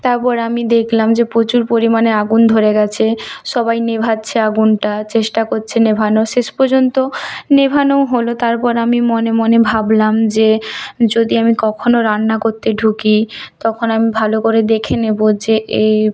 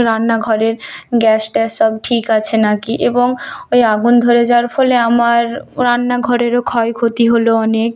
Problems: none marked